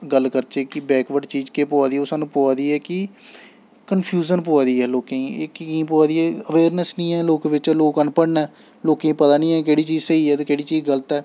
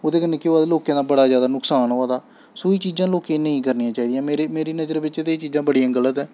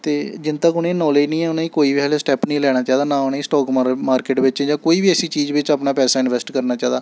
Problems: none marked